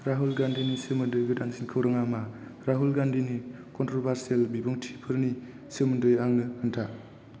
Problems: constant background noise